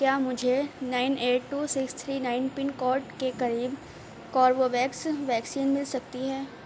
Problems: low volume